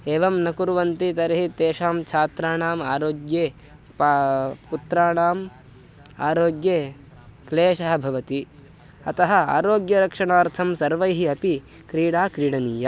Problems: constant background noise